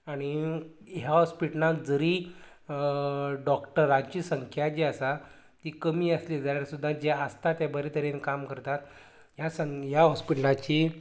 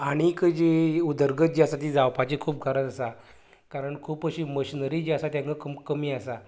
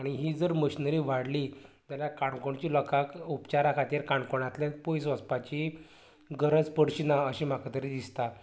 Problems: constant background noise, continuous background conversations